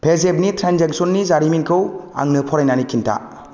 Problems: constant background noise